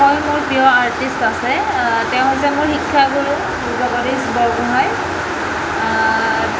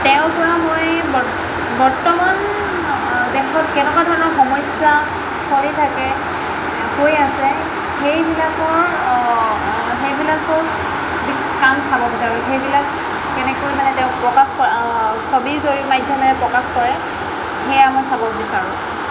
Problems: constant background noise